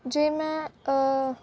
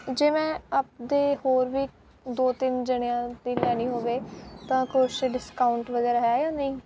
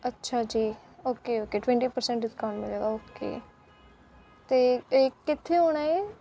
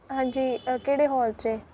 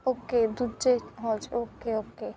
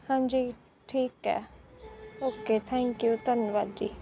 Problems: constant background noise